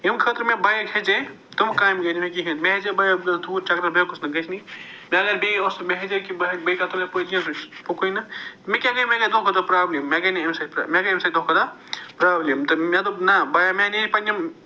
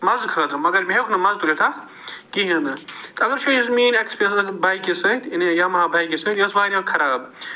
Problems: none marked